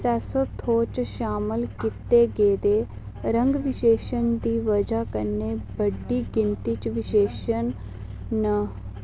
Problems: low volume